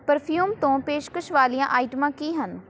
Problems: background conversations at intervals